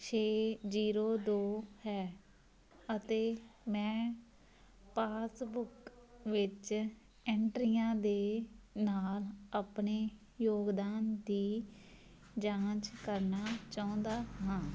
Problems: background sounds at intervals